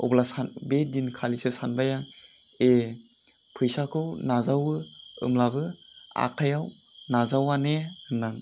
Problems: constant background noise